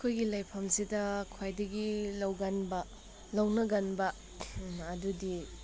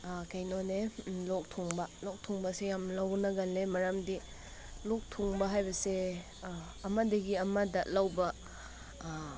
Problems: constant background noise